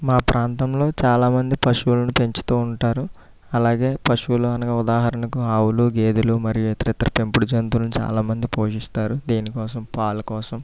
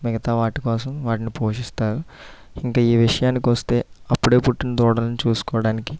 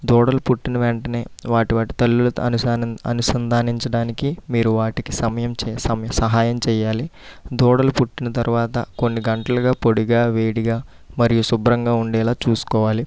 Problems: none marked